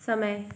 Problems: none marked